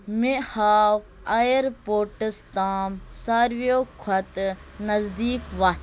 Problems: constant background noise